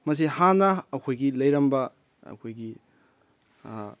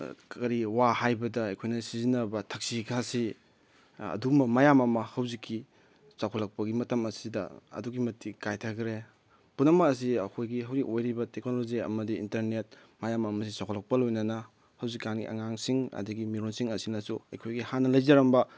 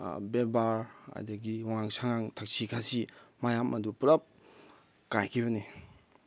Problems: background sounds at intervals